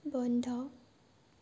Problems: low volume